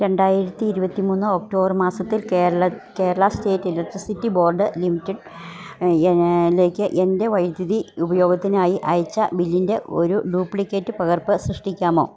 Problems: none marked